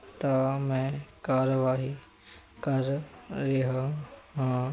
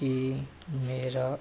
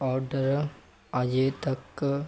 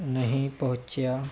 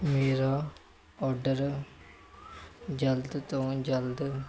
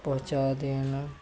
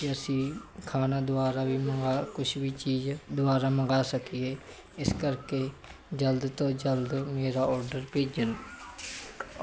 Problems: constant background noise